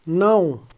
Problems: none marked